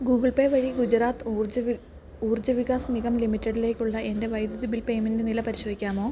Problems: low volume